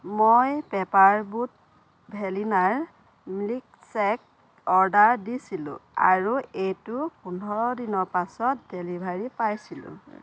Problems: background sounds at intervals